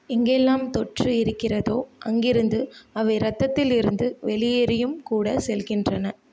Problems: none marked